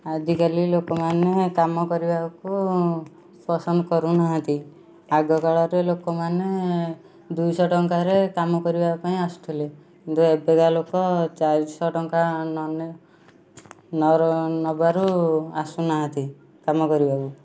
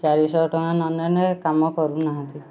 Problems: low volume